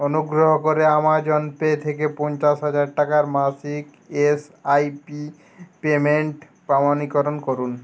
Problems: none marked